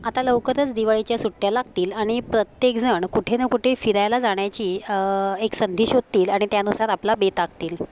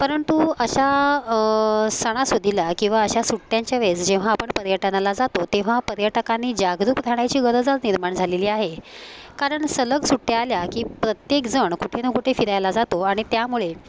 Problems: constant background noise, continuous background conversations